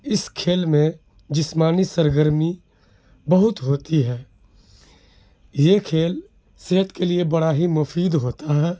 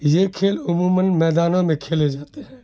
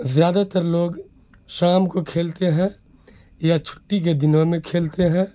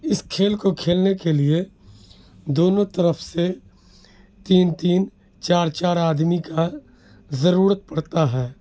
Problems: background sounds at intervals